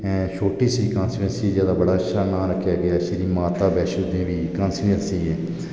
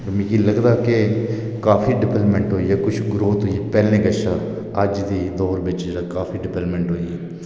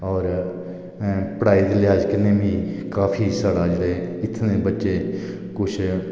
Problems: echo